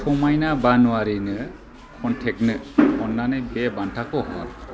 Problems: constant background noise